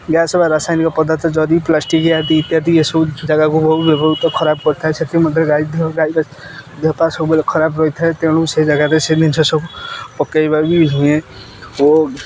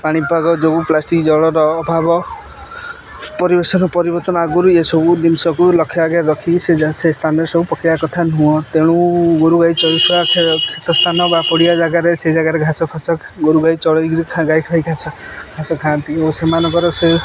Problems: constant background noise